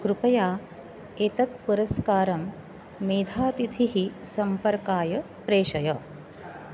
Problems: none marked